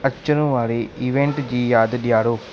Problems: constant background noise